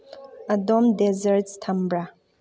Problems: background sounds at intervals